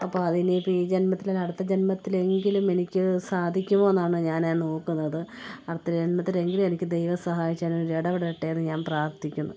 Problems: none marked